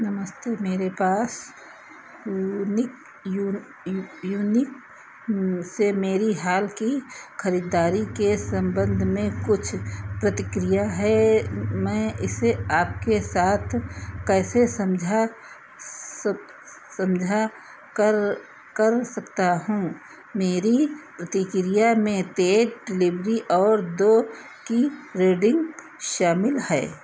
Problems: none marked